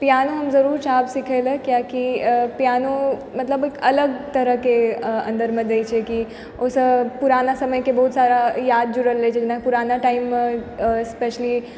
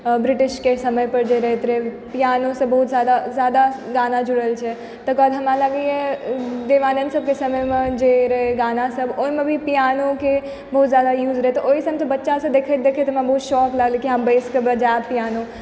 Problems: constant background noise